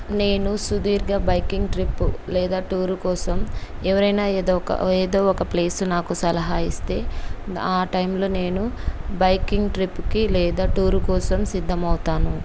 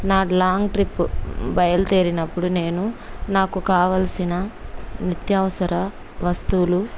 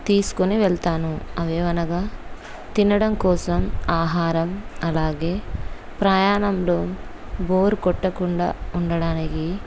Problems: none marked